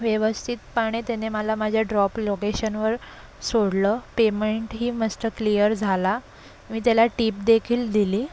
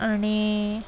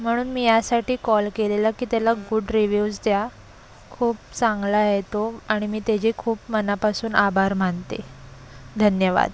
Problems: constant background noise, continuous background conversations